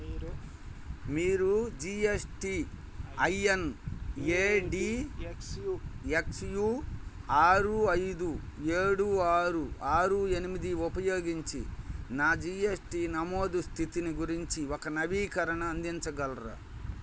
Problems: constant background noise